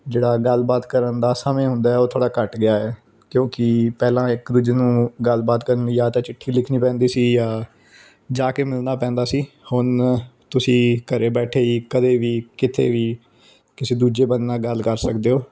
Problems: background sounds at intervals